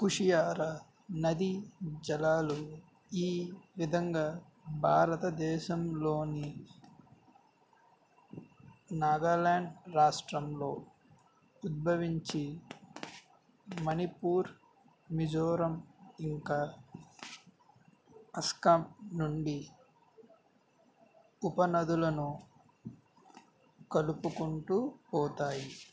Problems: background sounds at intervals